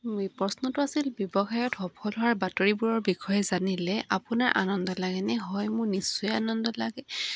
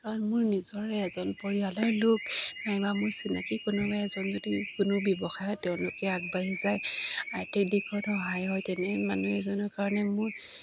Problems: none marked